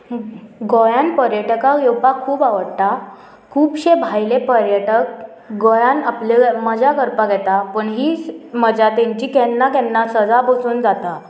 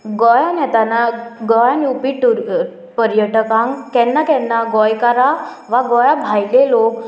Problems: none marked